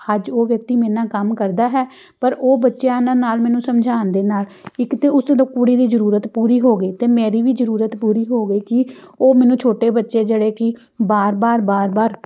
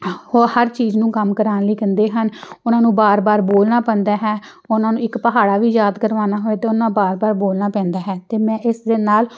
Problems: background sounds at intervals